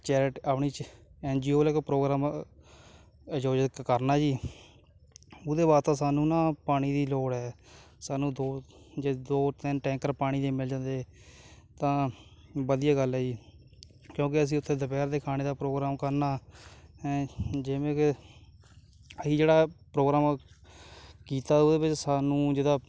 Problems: background sounds at intervals